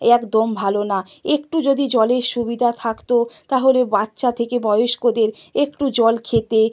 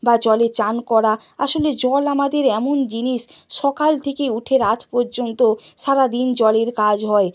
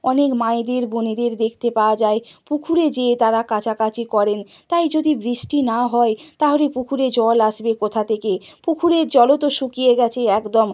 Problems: none marked